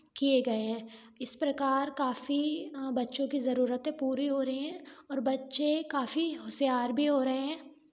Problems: background sounds at intervals